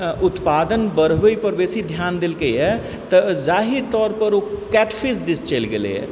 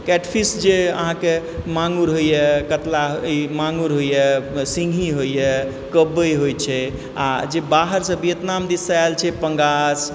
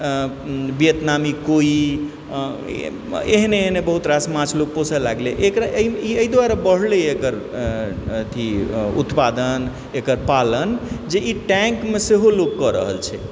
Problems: background sounds at intervals